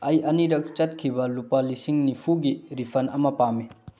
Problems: low volume